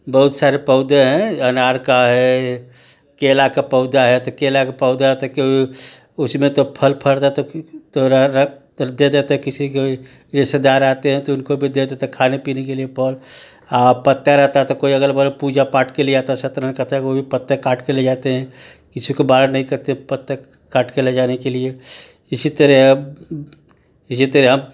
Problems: constant background noise